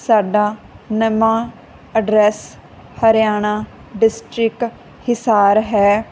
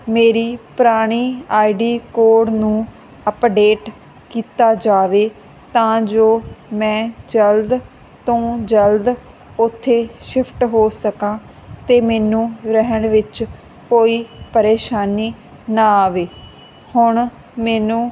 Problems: constant background noise